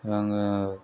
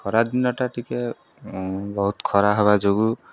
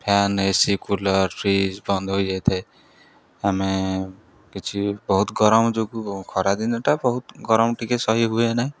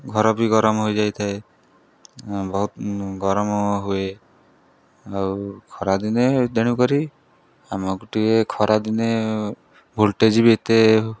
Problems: none marked